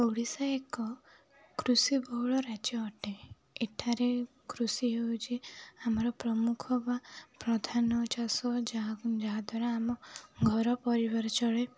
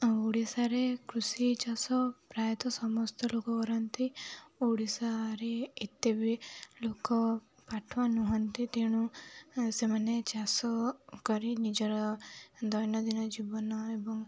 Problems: none marked